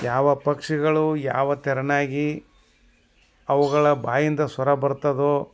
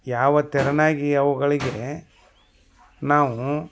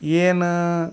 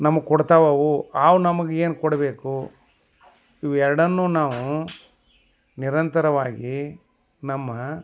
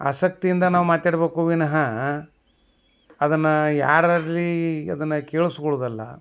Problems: none marked